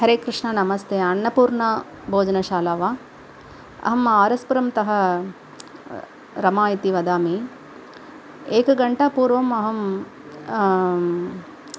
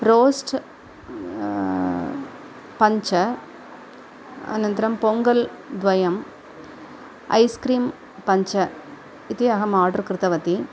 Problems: none marked